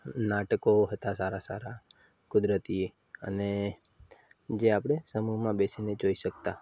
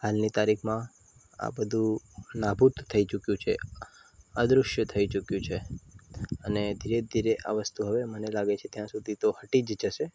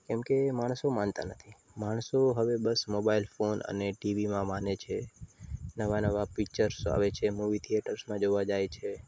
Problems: constant background noise